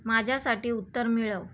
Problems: background sounds at intervals